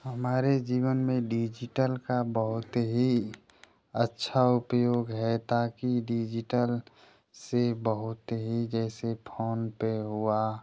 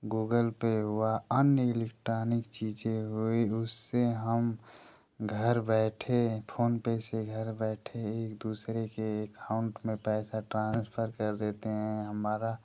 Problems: constant background noise